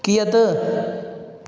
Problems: constant background noise, echo